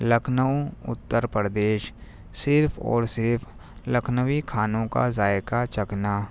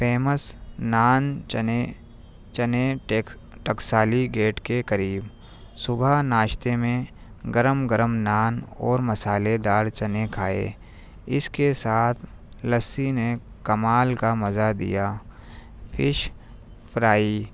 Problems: none marked